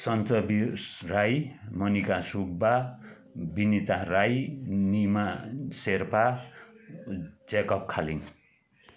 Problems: constant background noise